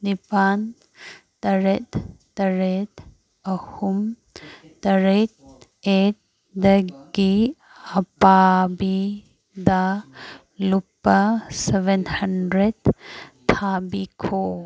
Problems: background sounds at intervals